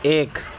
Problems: constant background noise